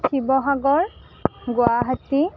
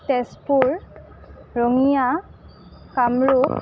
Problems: none marked